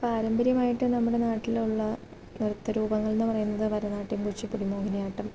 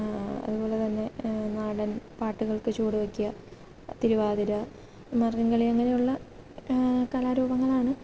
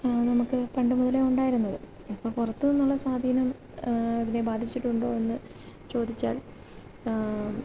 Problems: constant background noise, low volume